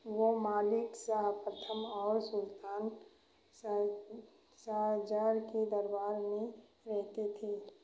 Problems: background sounds at intervals